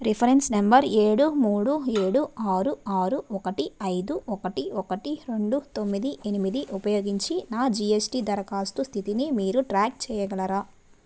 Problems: none marked